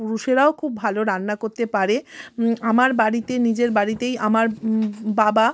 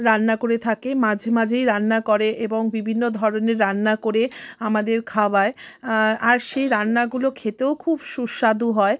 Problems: constant background noise, background conversations at intervals